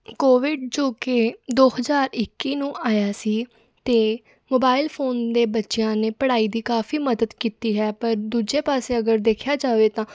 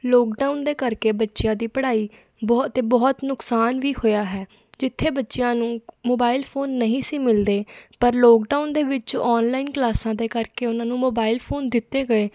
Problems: none marked